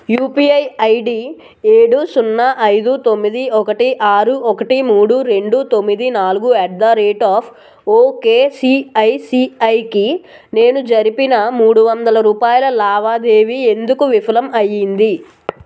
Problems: constant background noise